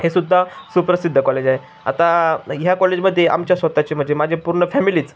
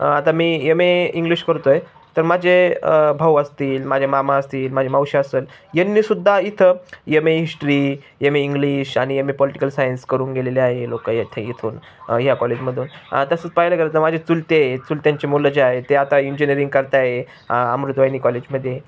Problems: constant background noise, background conversations at intervals